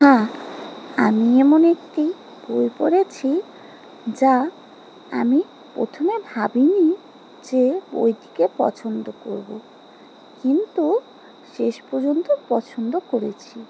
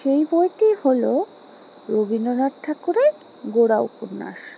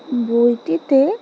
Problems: background sounds at intervals